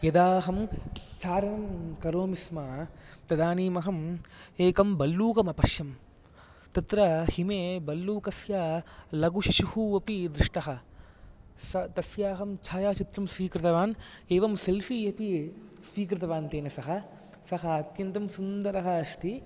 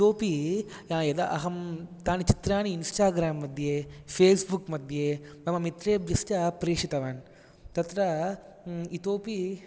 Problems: none marked